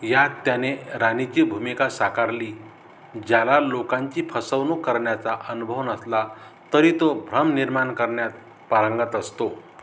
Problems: constant background noise